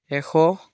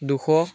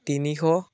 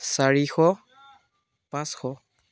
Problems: none marked